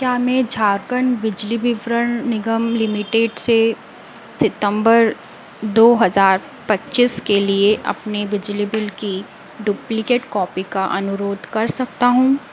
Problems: none marked